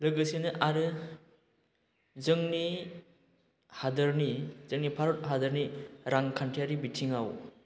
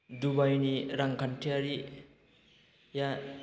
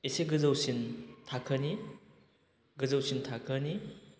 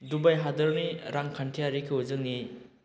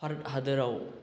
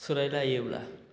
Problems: none marked